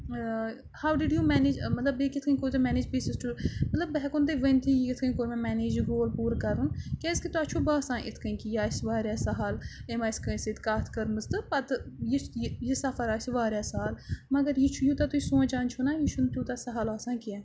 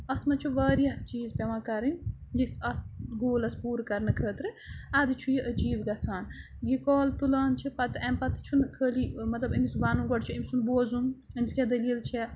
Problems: none marked